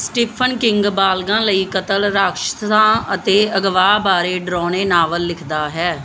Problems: none marked